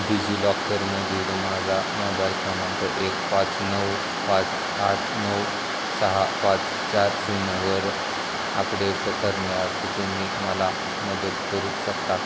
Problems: constant background noise